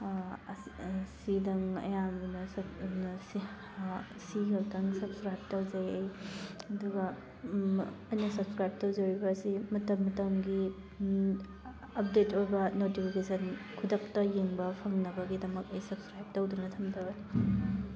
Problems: constant background noise